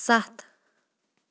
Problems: background sounds at intervals